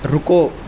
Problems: constant background noise